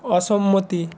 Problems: none marked